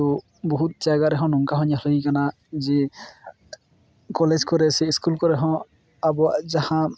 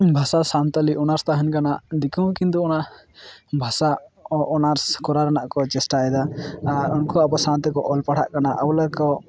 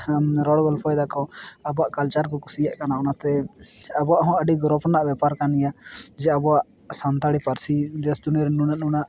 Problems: background sounds at intervals